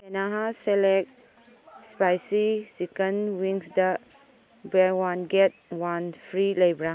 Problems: background sounds at intervals